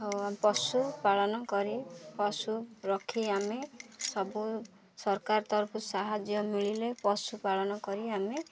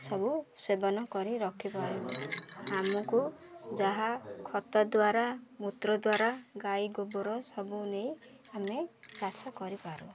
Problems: constant background noise, continuous background conversations